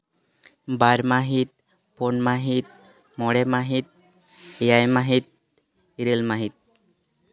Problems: constant background noise, background conversations at intervals